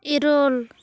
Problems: constant background noise